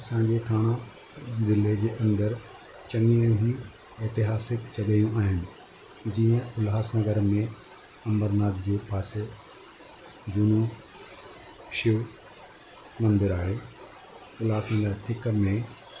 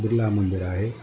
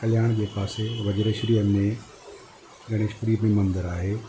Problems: constant background noise, low volume